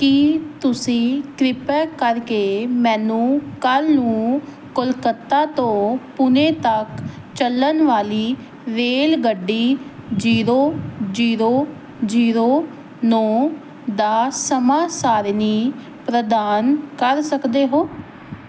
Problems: none marked